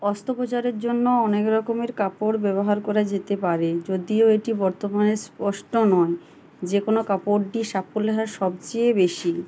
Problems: none marked